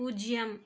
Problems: none marked